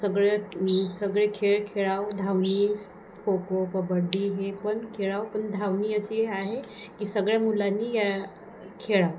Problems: none marked